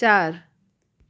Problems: none marked